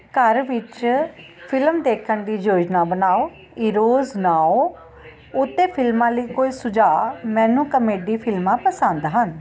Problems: constant background noise